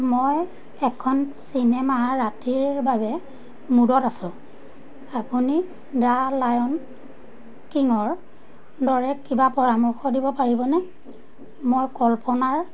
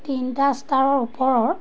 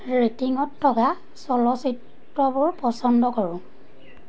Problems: constant background noise